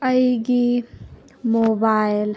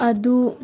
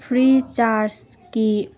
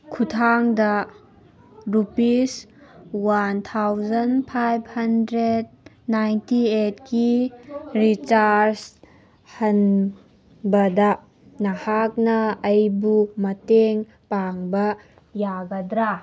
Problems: background sounds at intervals